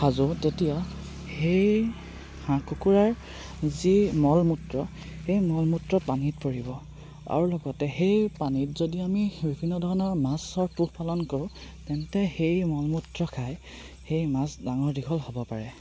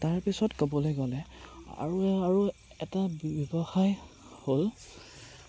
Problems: none marked